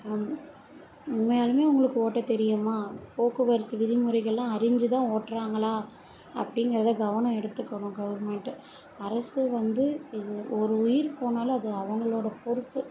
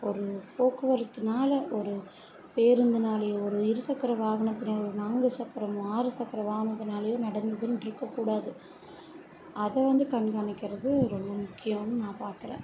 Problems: constant background noise